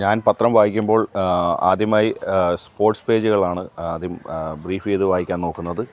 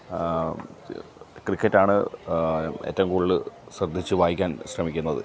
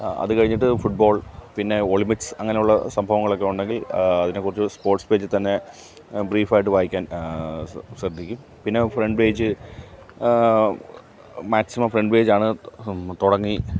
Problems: none marked